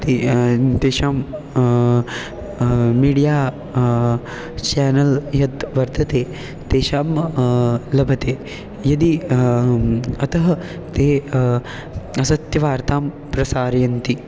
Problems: background sounds at intervals